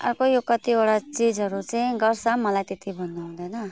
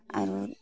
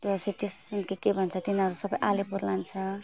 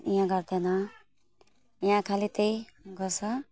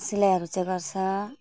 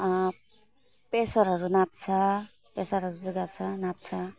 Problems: none marked